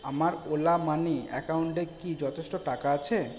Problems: none marked